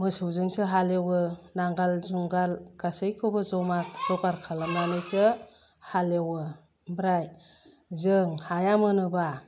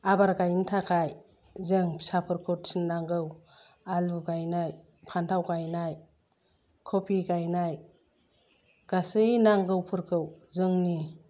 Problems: low volume